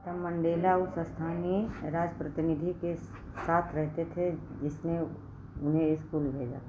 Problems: constant background noise